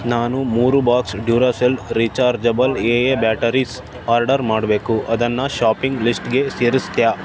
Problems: constant background noise